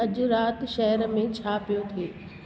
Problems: constant background noise, echo